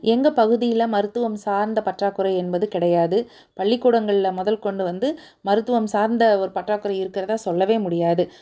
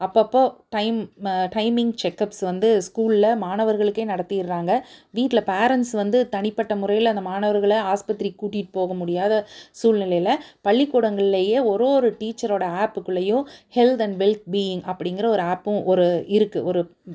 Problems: none marked